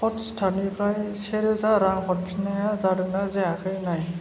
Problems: none marked